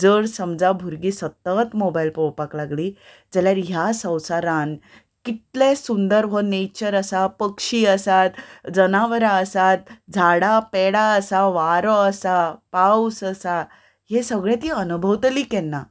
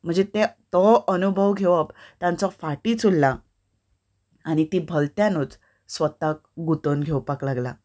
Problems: none marked